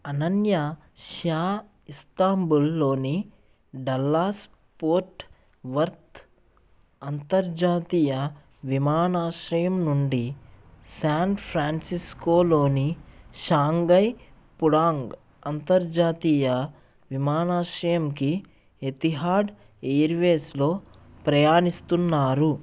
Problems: none marked